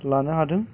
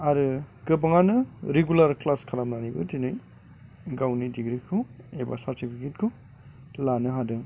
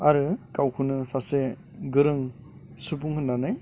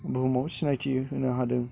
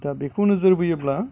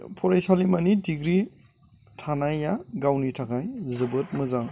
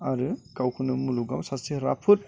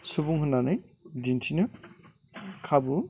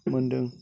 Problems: constant background noise